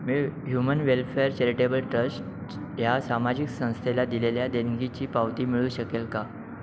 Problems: constant background noise, background conversations at intervals